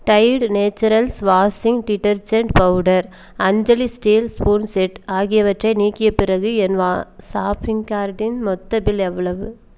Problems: none marked